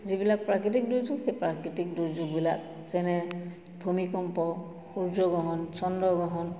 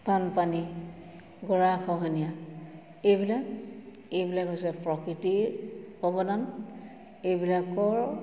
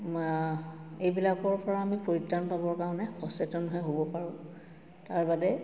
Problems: constant background noise, background conversations at intervals, echo